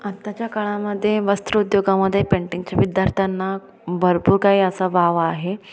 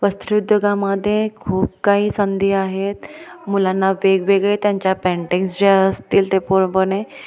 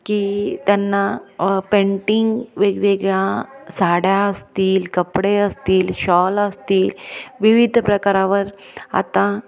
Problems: background sounds at intervals, background conversations at intervals, echo